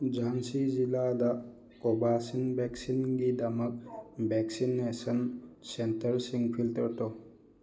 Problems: background sounds at intervals